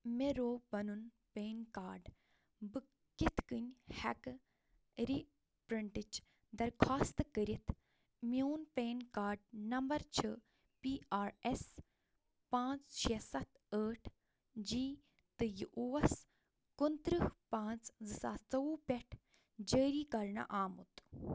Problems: none marked